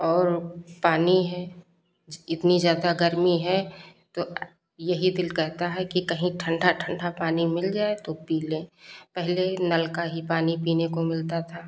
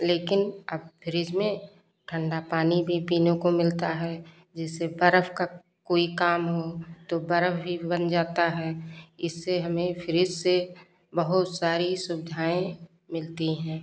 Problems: none marked